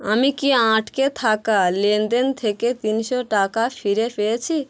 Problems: constant background noise